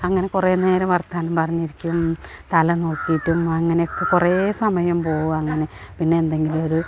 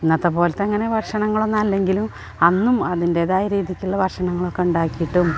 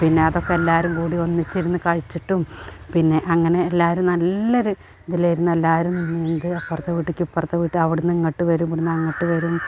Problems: background sounds at intervals